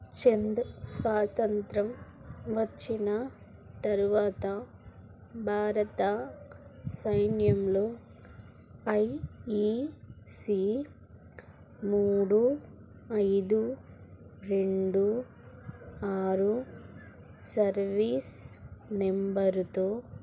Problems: low volume